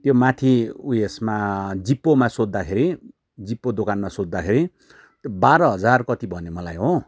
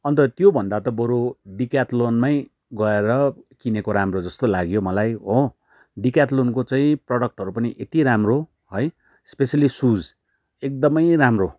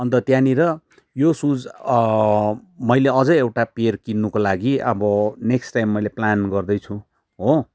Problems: none marked